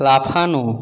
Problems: none marked